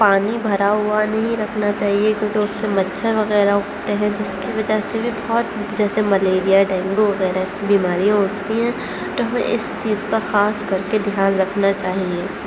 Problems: constant background noise